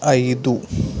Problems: constant background noise